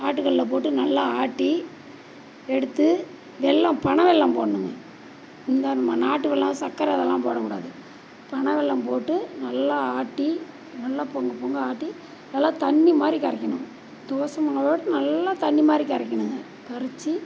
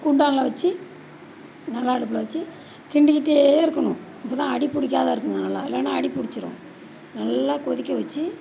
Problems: background sounds at intervals